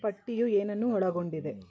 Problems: none marked